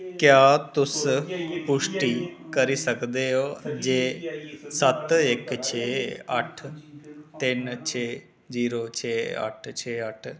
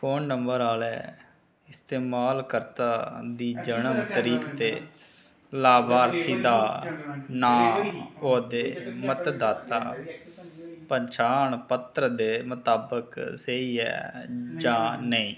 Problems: none marked